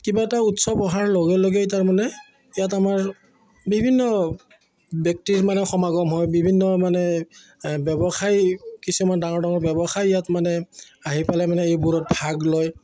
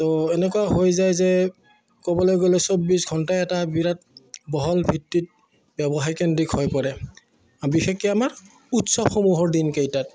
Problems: none marked